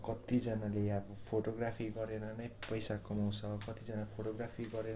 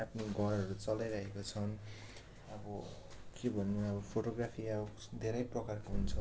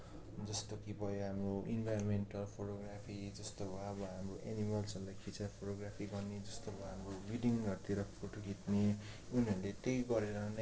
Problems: low volume